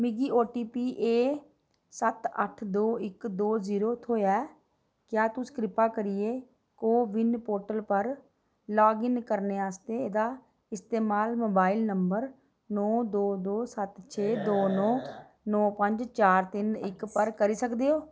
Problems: none marked